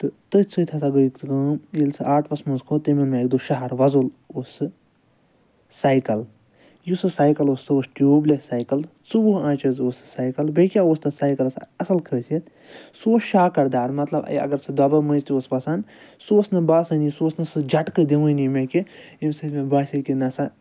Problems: none marked